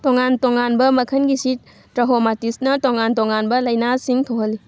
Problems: none marked